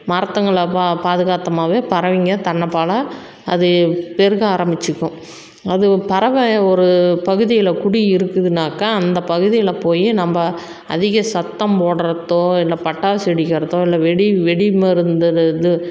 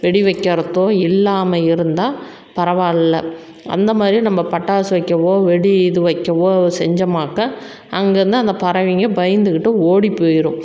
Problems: background sounds at intervals